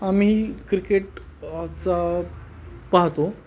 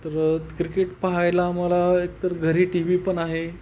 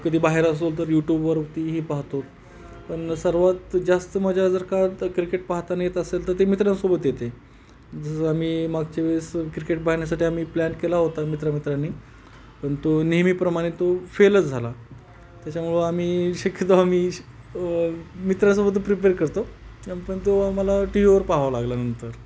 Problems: background sounds at intervals